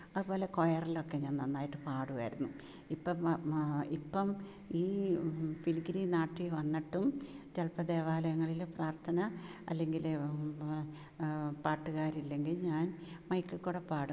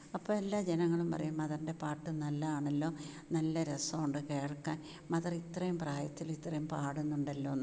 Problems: low volume